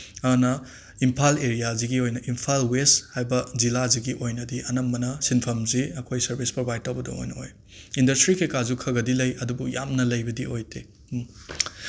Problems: none marked